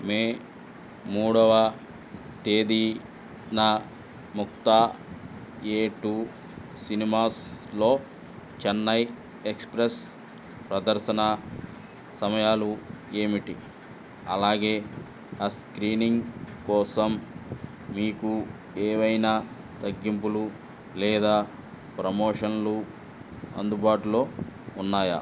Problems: none marked